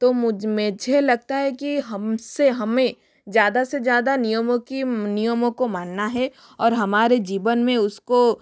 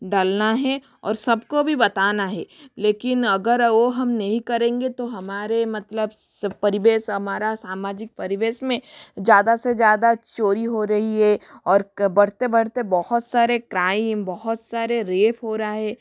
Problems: none marked